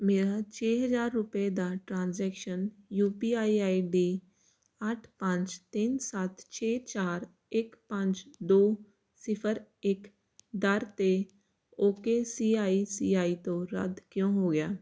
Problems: constant background noise